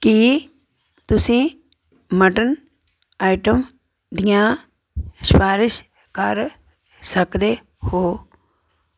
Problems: none marked